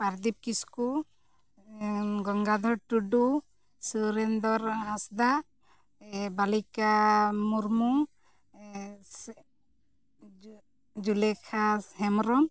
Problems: background sounds at intervals